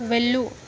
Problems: continuous background conversations